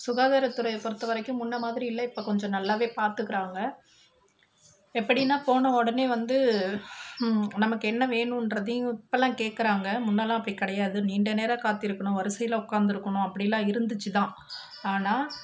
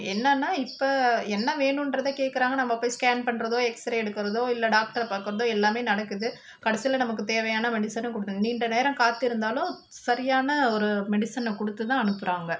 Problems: constant background noise